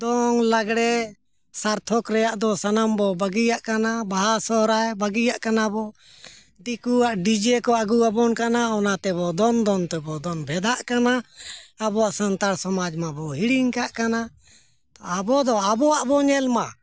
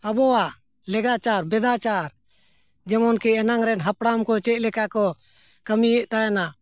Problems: none marked